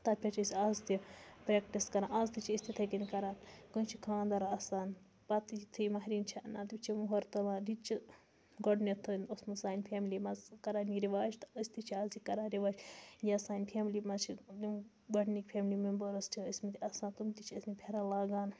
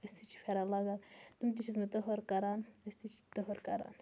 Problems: low volume